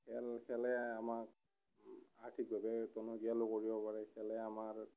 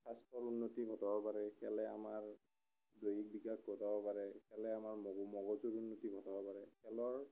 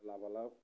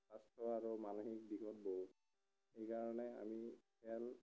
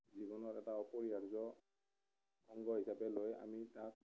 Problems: none marked